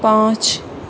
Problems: none marked